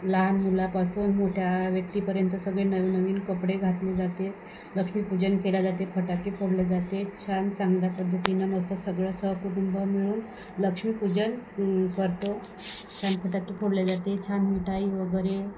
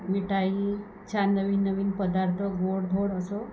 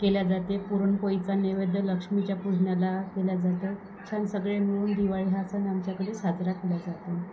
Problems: constant background noise